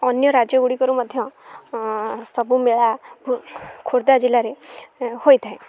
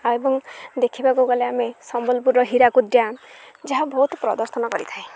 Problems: none marked